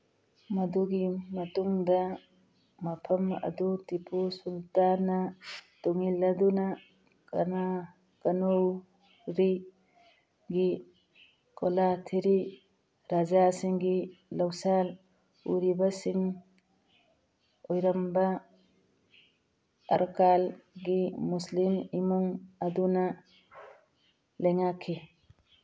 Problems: background sounds at intervals, background conversations at intervals